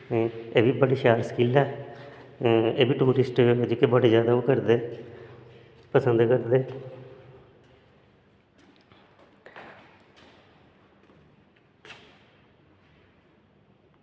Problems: constant background noise